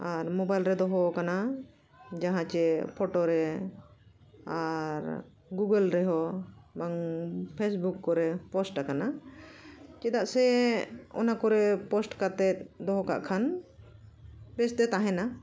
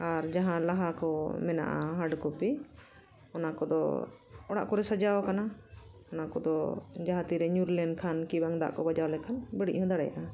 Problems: continuous background conversations